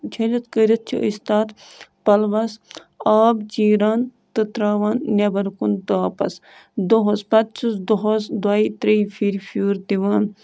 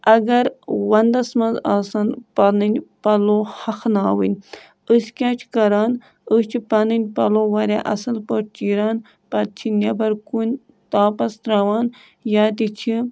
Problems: background sounds at intervals